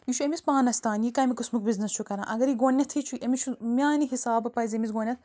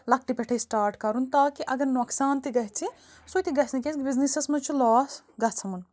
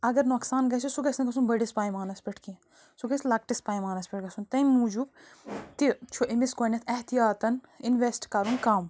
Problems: background sounds at intervals, background conversations at intervals